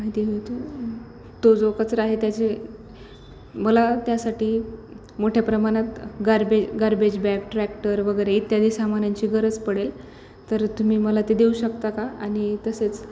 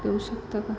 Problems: none marked